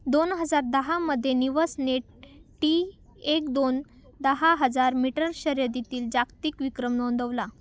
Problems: none marked